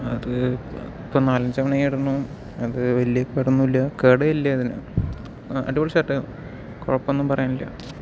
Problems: background sounds at intervals